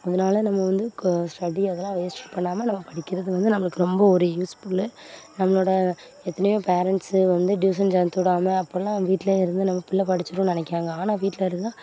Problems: constant background noise, continuous background conversations